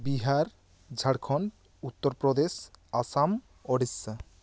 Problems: none marked